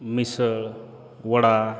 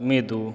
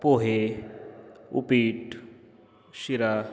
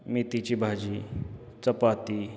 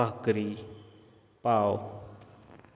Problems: none marked